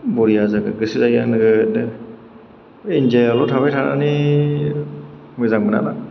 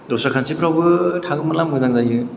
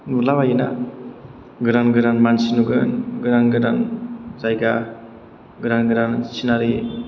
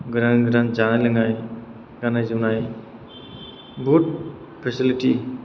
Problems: background sounds at intervals